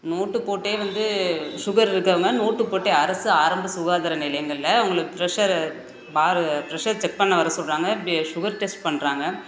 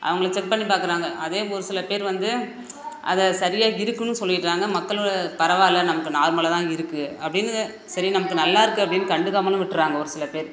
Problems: background sounds at intervals